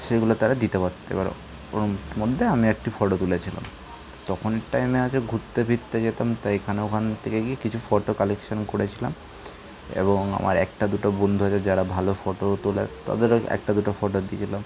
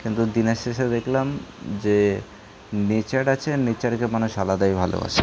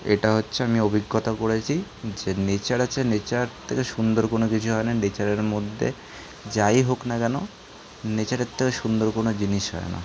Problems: constant background noise